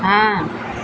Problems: none marked